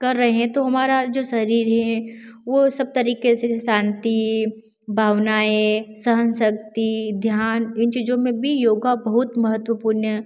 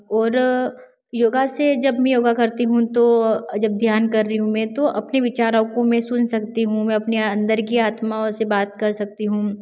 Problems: constant background noise